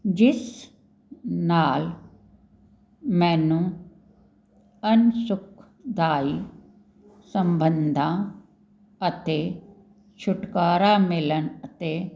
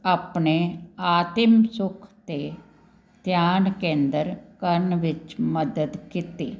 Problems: none marked